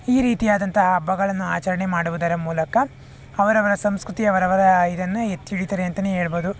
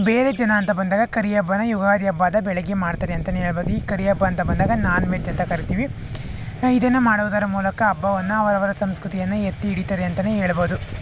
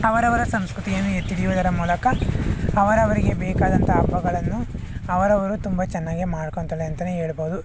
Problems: background sounds at intervals